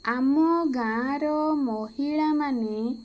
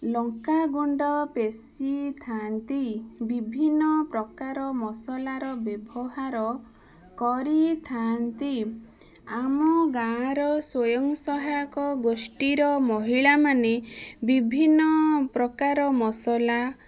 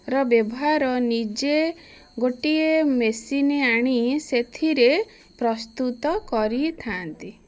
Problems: constant background noise